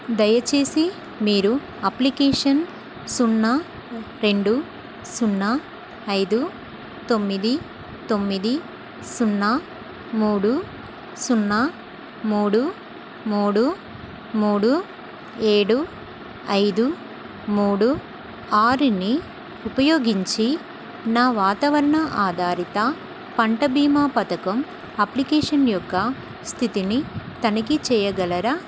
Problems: constant background noise